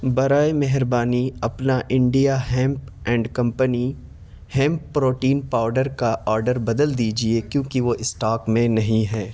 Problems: constant background noise